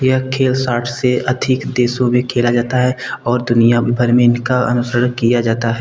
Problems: background sounds at intervals